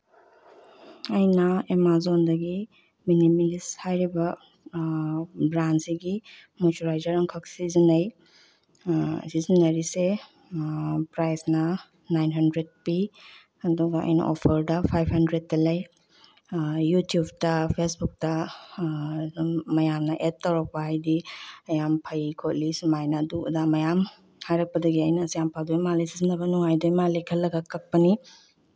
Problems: background sounds at intervals, low volume